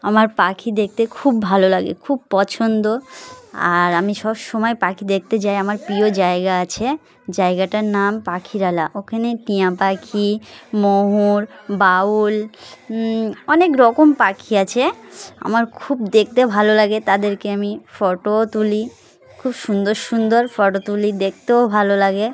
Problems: constant background noise, continuous background conversations